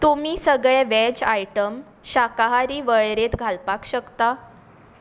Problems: constant background noise